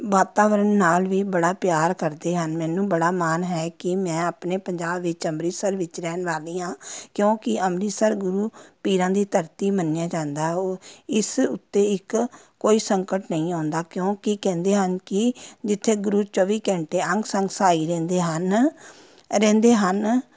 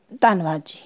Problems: constant background noise, background conversations at intervals